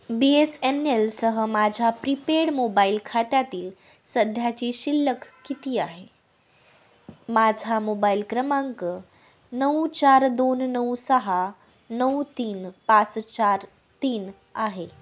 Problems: none marked